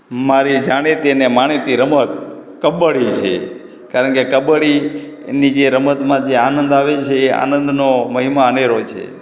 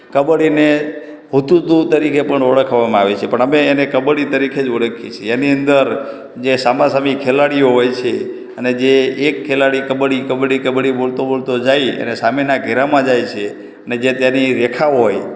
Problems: background sounds at intervals, echo